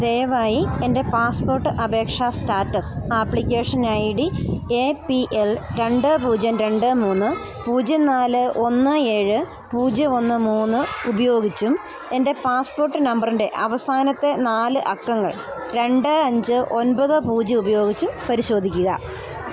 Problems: none marked